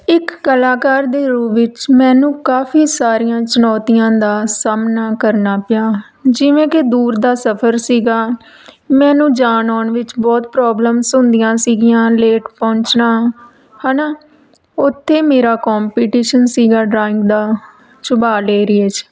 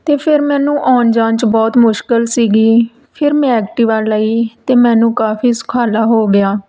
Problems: background sounds at intervals